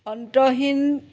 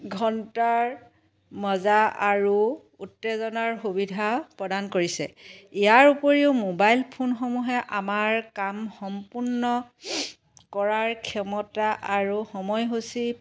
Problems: background sounds at intervals